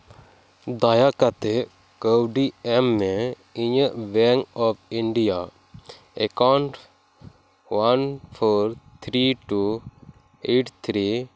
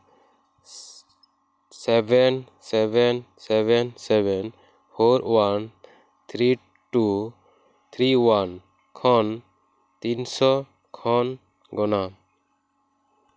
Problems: background sounds at intervals